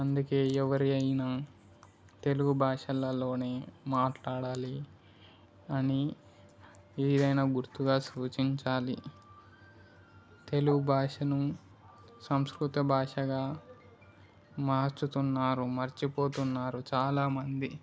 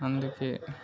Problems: background conversations at intervals